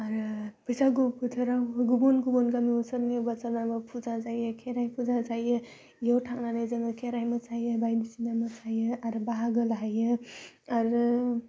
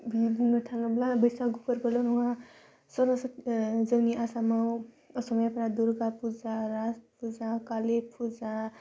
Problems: constant background noise